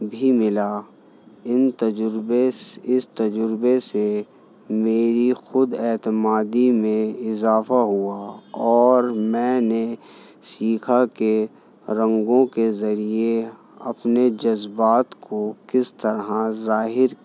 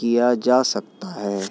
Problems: none marked